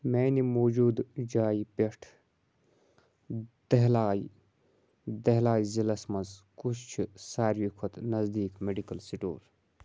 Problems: background sounds at intervals